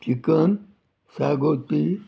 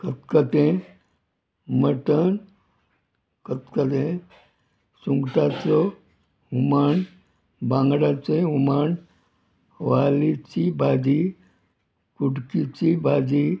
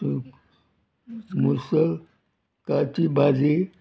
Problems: none marked